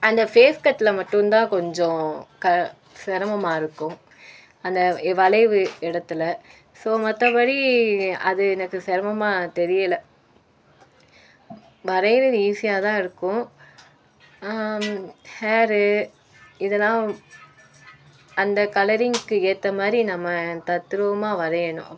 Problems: constant background noise